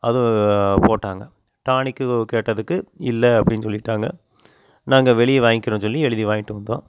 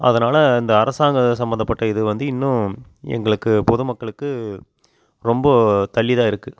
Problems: constant background noise